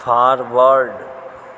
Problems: constant background noise